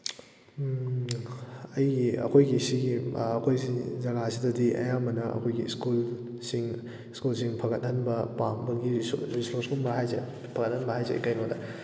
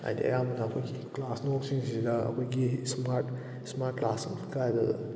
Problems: background sounds at intervals